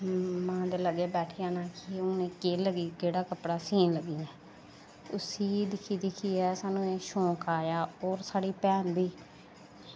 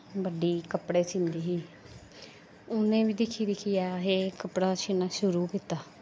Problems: echo